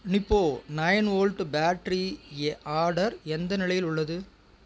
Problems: constant background noise